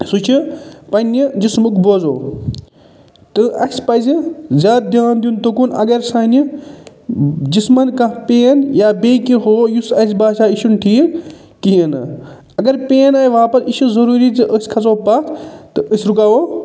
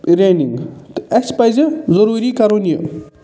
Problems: none marked